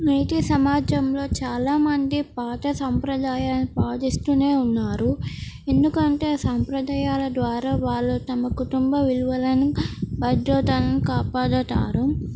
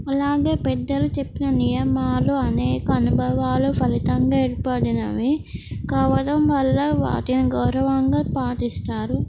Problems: none marked